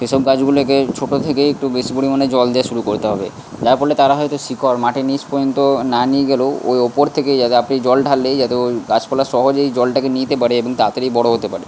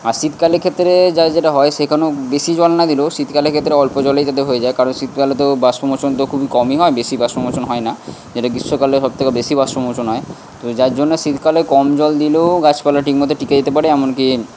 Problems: constant background noise